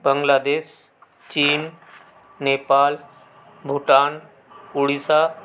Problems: constant background noise